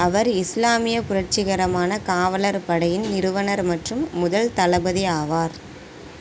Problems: background sounds at intervals